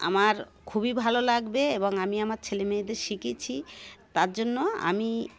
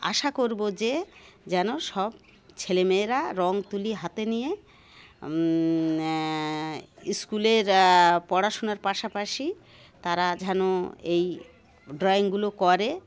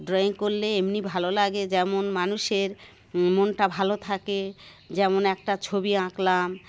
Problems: none marked